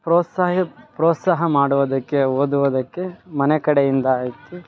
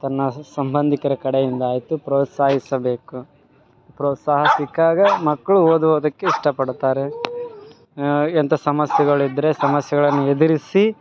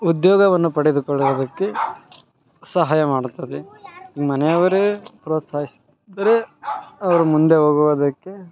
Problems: background sounds at intervals